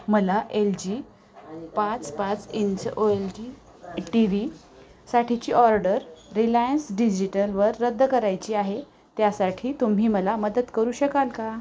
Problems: constant background noise, background conversations at intervals